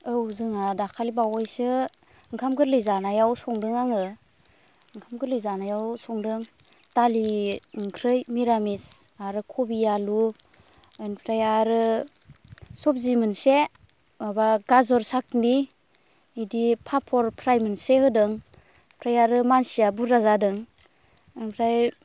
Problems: constant background noise